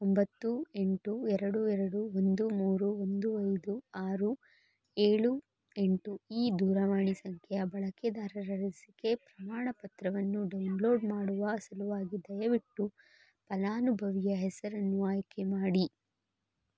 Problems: none marked